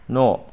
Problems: none marked